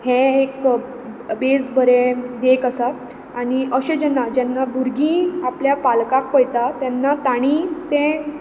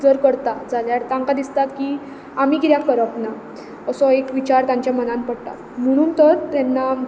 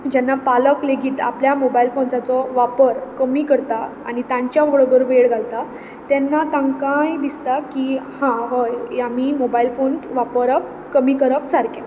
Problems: constant background noise